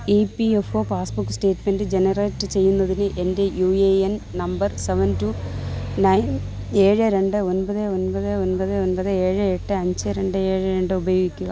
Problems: none marked